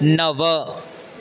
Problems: constant background noise